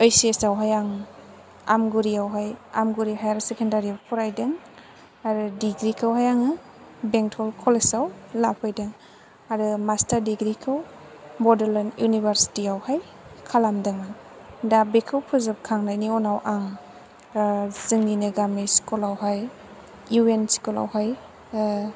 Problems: background sounds at intervals